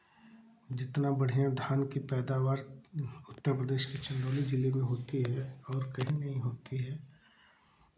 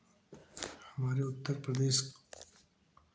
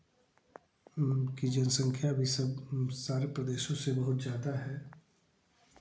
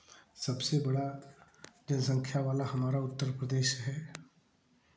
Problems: background sounds at intervals